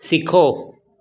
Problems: none marked